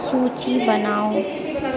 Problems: continuous background conversations